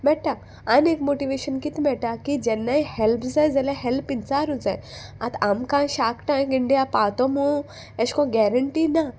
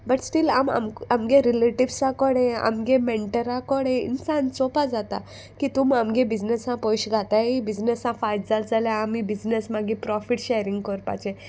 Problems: none marked